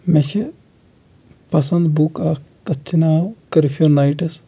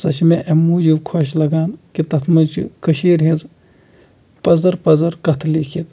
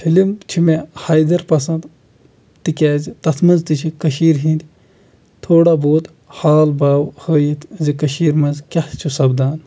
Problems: background sounds at intervals